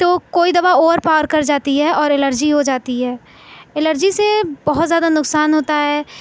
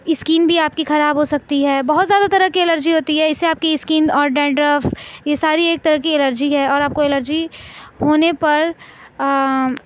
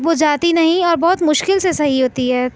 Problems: none marked